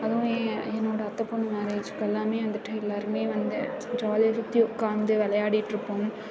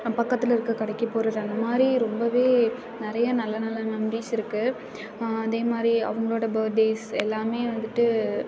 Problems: background conversations at intervals